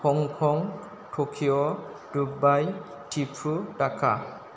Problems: constant background noise